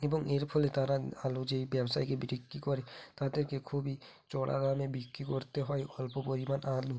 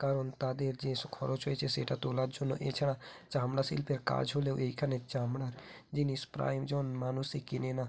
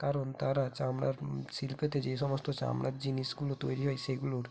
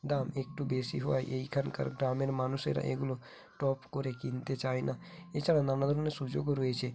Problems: none marked